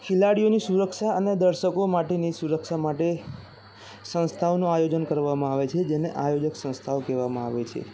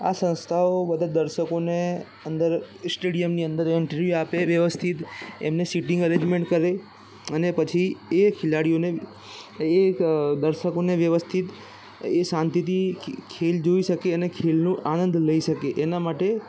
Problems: constant background noise, background conversations at intervals